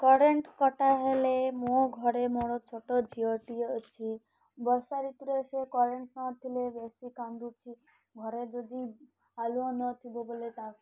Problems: none marked